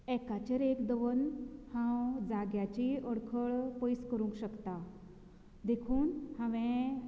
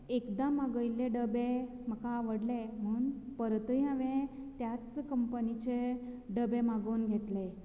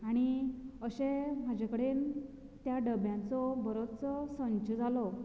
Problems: none marked